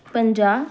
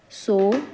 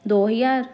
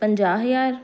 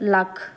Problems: none marked